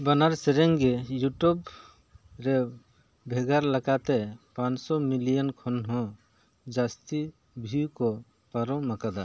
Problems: none marked